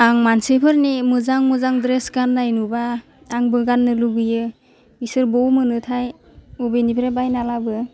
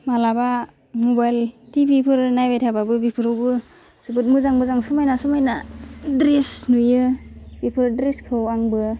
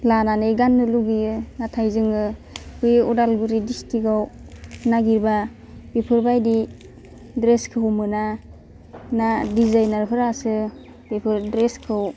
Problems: constant background noise